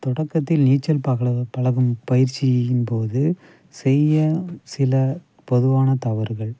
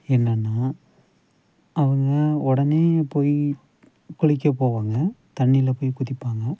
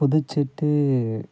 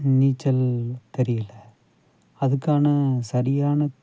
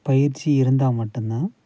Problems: background sounds at intervals